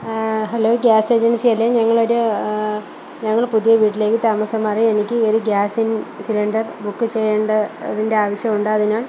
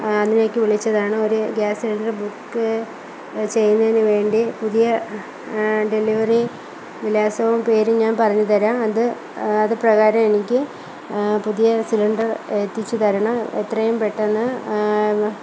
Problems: low volume